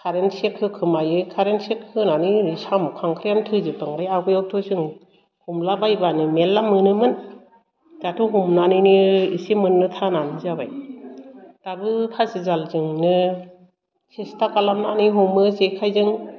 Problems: low volume